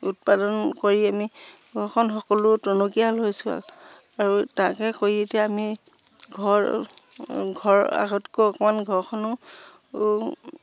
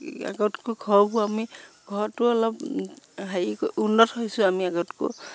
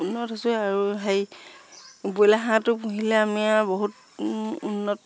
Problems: low volume